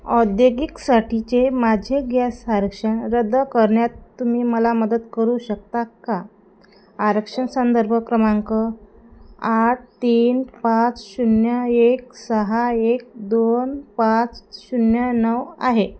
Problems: constant background noise, background conversations at intervals